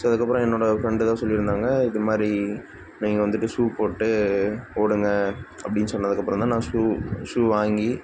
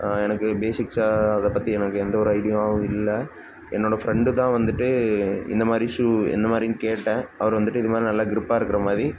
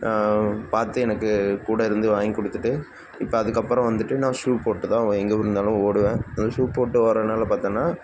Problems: constant background noise